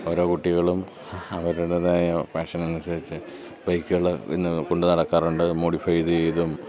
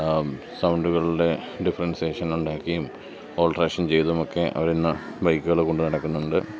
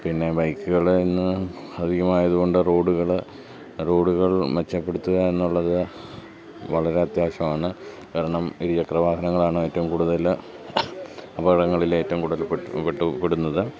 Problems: none marked